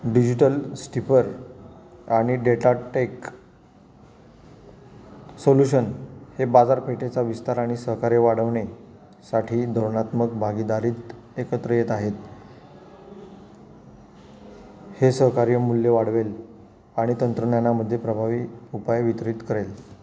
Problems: constant background noise, background conversations at intervals